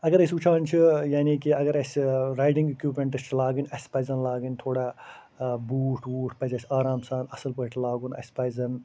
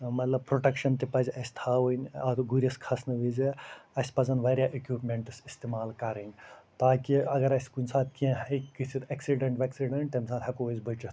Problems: none marked